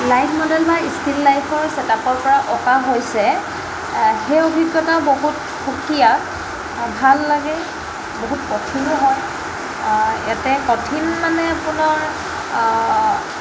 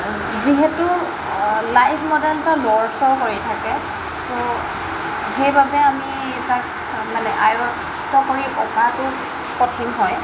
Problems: constant background noise